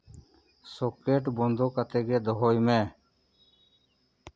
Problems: none marked